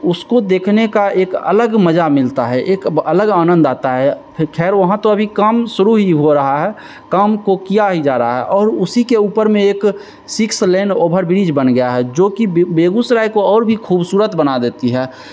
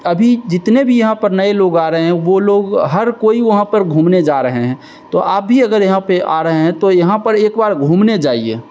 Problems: constant background noise, echo